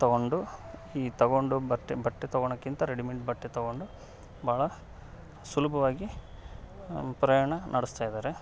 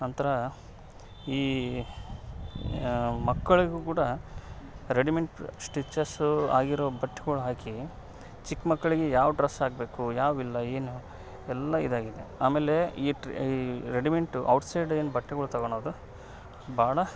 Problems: background sounds at intervals